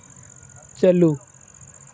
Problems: constant background noise